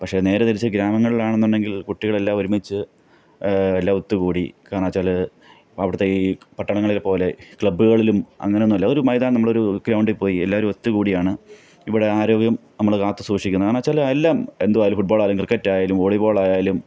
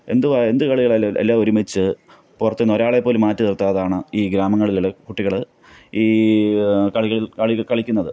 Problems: none marked